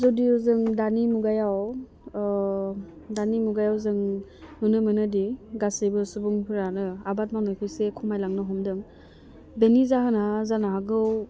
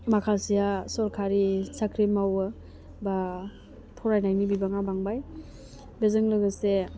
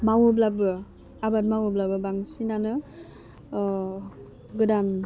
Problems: low volume